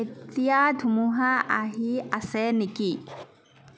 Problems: background conversations at intervals